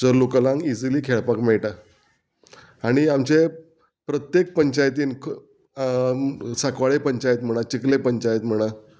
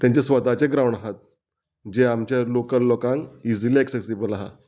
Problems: none marked